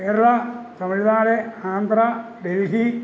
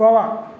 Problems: constant background noise